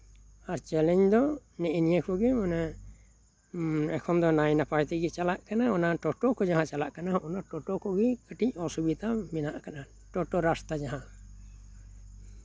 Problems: background sounds at intervals